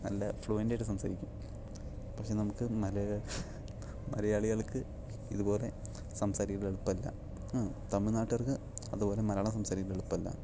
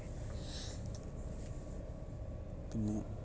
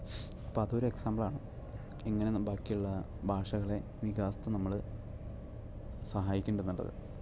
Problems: none marked